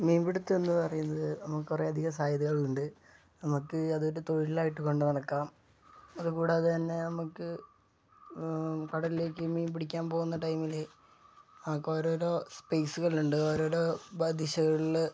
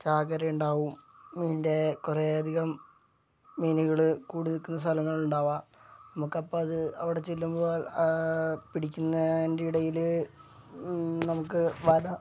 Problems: low volume